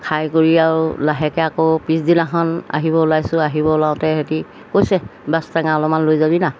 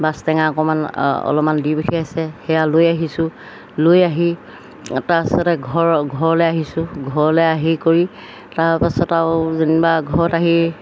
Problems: background sounds at intervals